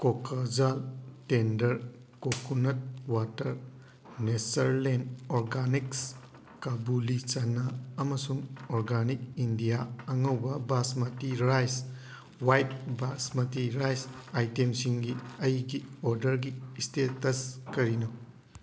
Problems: constant background noise